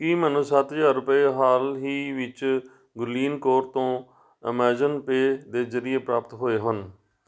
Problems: none marked